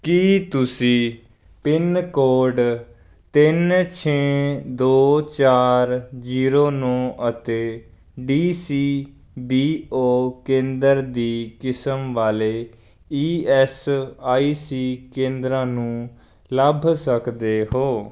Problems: background sounds at intervals